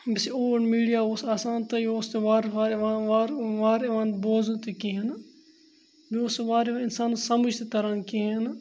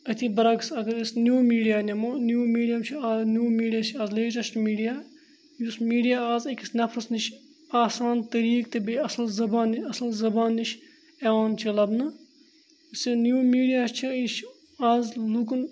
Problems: none marked